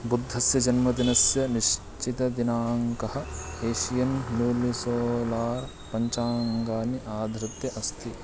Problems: none marked